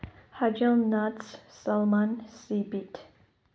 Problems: low volume